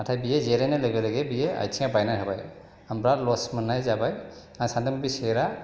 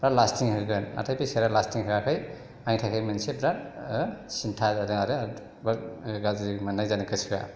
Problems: none marked